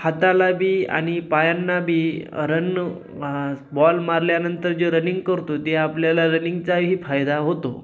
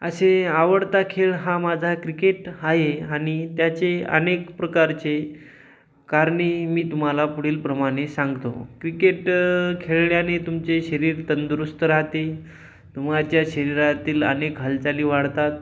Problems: background sounds at intervals